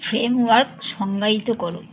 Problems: none marked